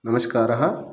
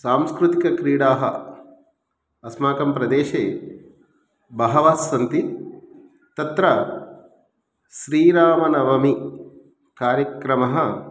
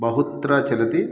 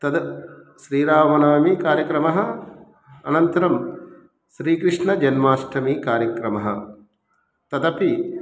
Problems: none marked